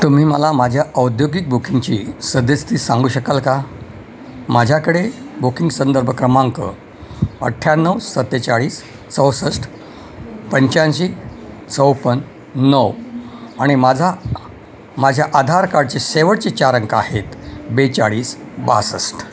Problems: constant background noise